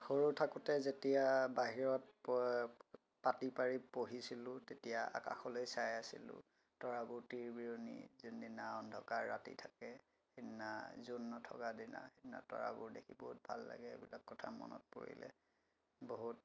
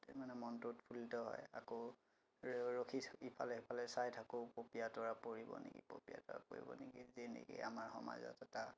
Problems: constant background noise